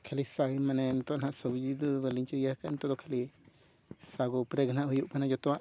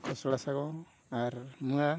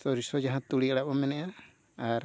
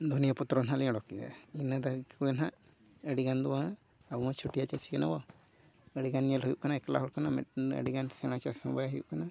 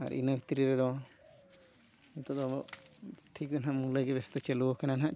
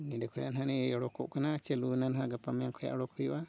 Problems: background sounds at intervals, low volume